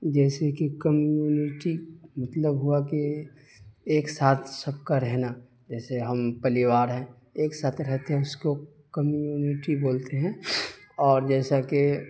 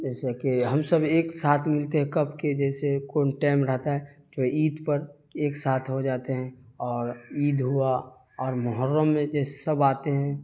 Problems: constant background noise